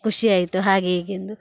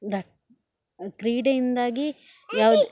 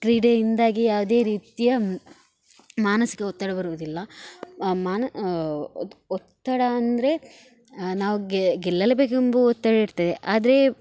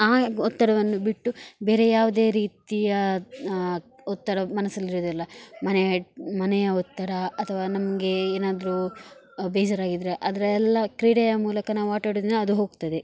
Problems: none marked